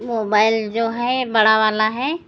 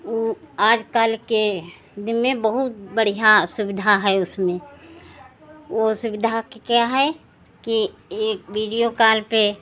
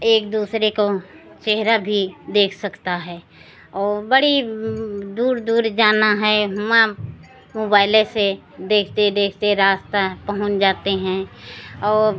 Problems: none marked